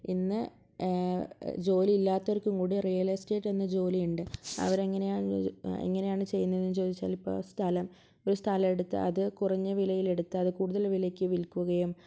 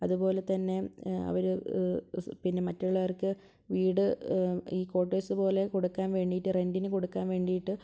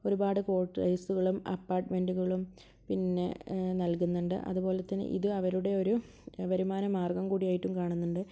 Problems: low volume